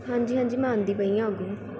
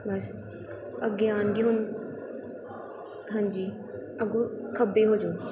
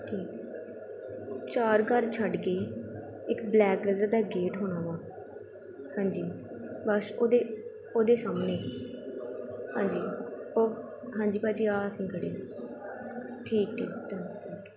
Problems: constant background noise